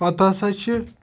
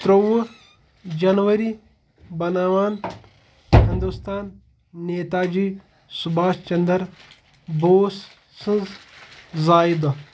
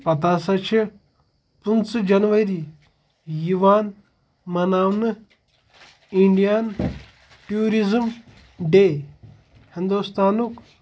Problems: background sounds at intervals, background conversations at intervals